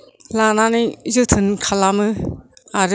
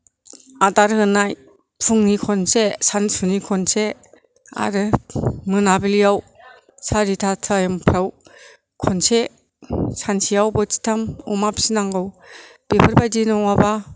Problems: low volume